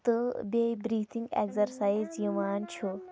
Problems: background sounds at intervals, low volume